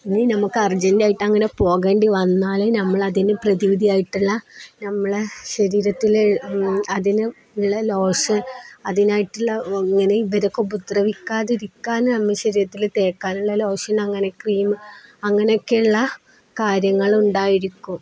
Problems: none marked